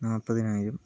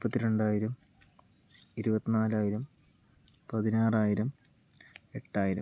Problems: low volume